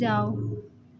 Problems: constant background noise